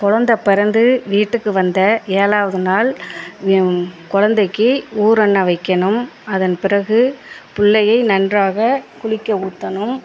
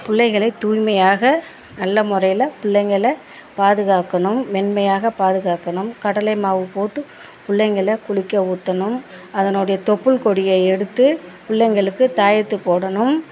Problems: background conversations at intervals